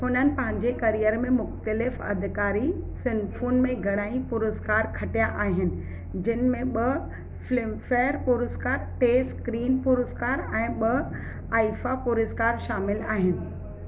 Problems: constant background noise, background conversations at intervals